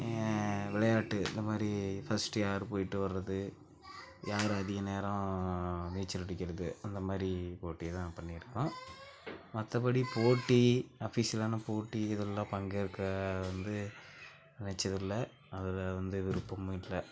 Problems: background sounds at intervals, background conversations at intervals, low volume